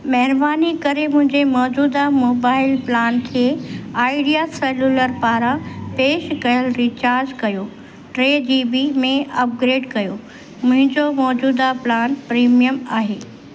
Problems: constant background noise, echo